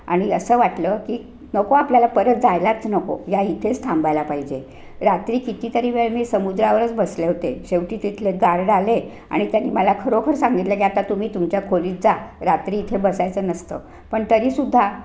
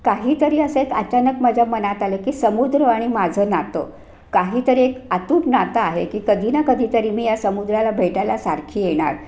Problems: none marked